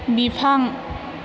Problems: constant background noise